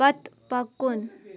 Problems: none marked